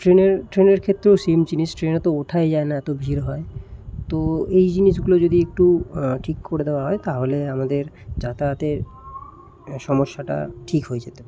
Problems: constant background noise